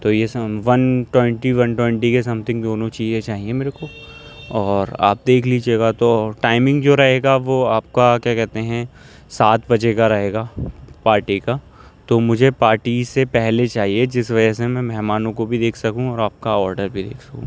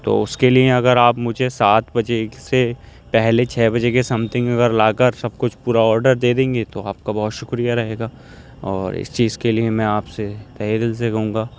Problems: constant background noise